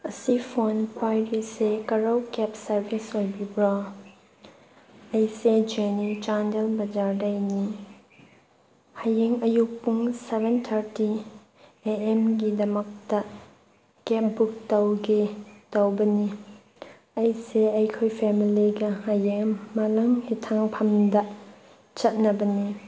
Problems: background sounds at intervals